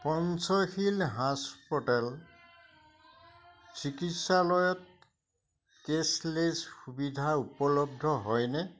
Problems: none marked